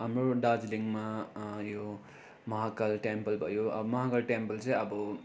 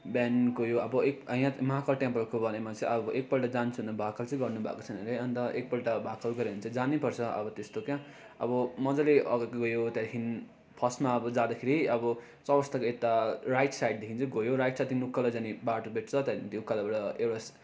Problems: constant background noise